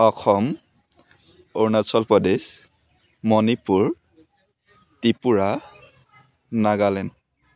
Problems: continuous background conversations